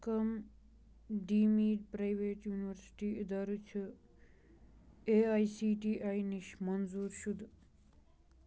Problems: none marked